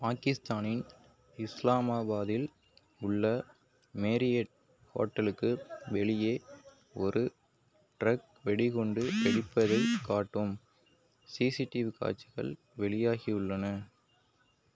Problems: background sounds at intervals